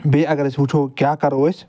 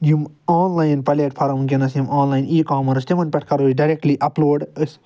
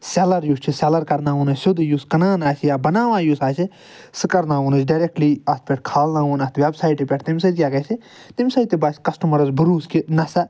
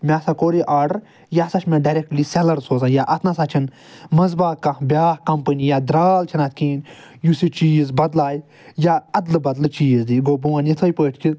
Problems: none marked